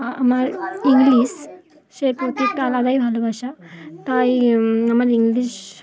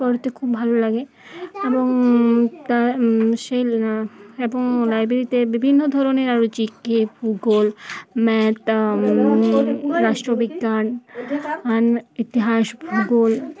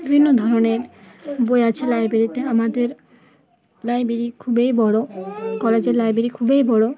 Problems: continuous background conversations